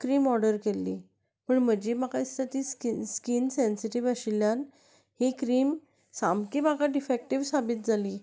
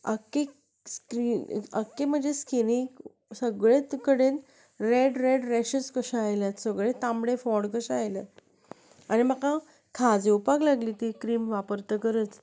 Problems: constant background noise